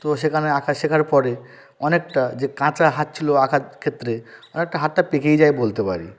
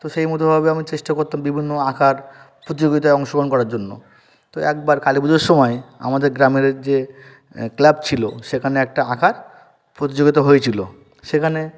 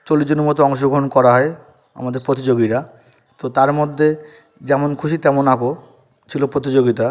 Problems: background sounds at intervals